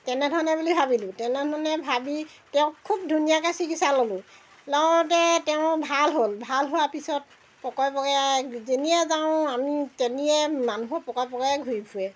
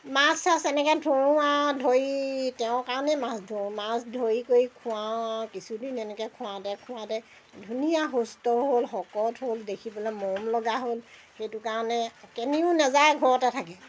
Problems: background sounds at intervals